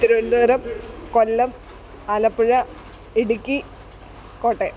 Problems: constant background noise